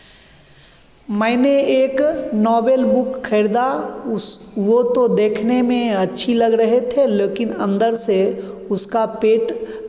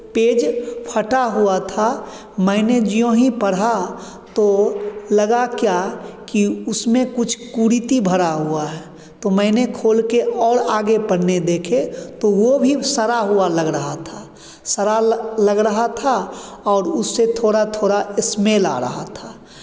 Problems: constant background noise, echo